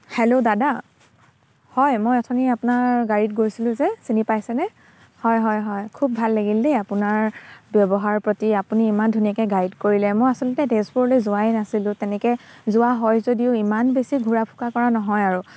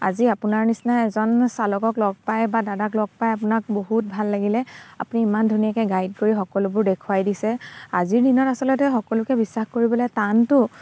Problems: constant background noise